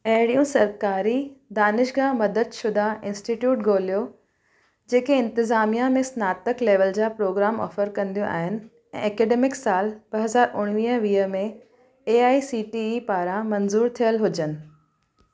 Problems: background sounds at intervals